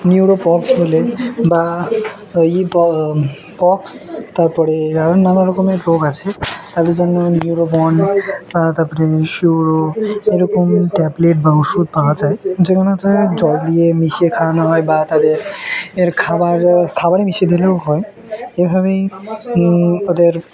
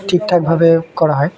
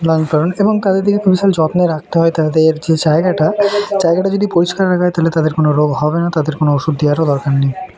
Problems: constant background noise, continuous background conversations